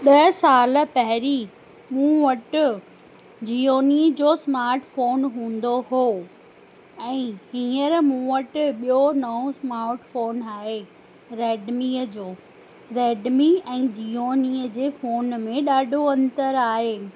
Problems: constant background noise